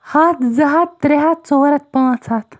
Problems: none marked